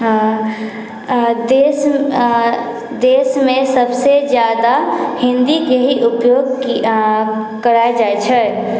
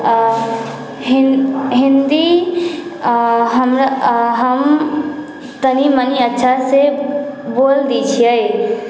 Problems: background conversations at intervals